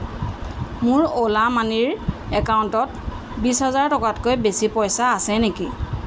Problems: constant background noise